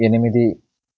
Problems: none marked